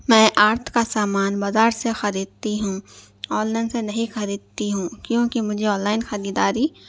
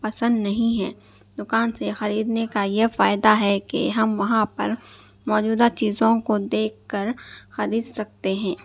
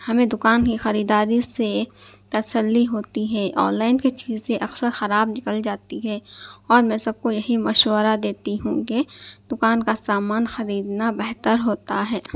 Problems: none marked